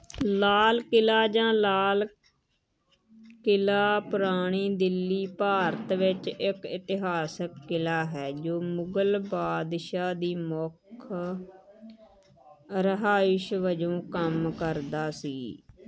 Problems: none marked